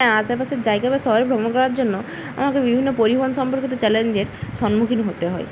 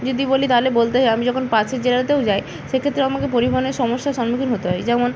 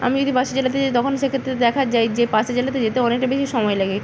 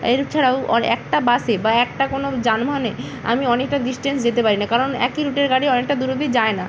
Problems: constant background noise